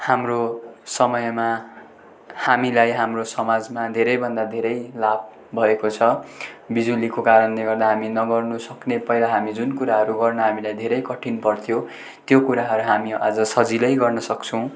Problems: none marked